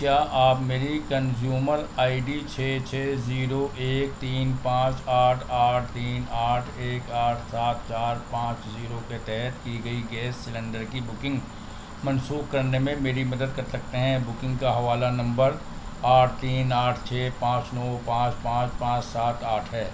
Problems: constant background noise, low volume